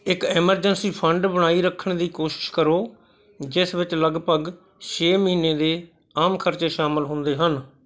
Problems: background conversations at intervals